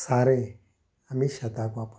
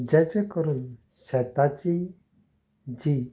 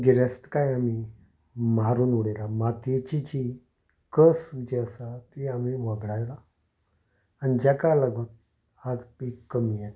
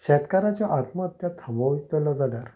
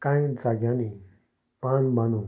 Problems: background sounds at intervals